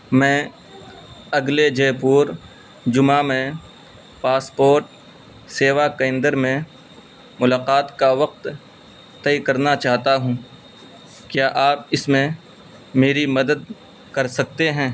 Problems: constant background noise